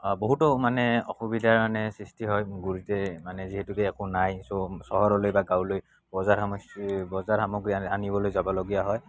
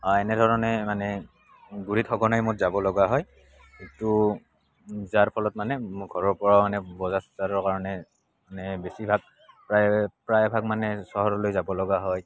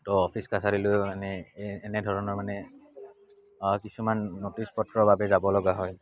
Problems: constant background noise